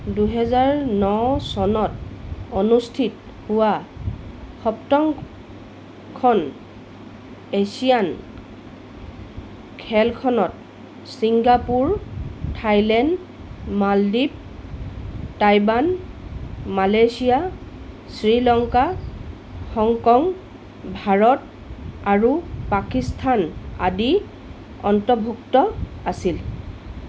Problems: constant background noise